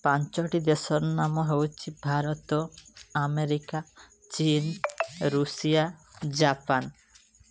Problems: background sounds at intervals